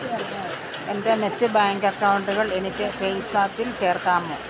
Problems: constant background noise